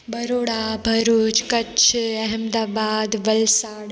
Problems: constant background noise, echo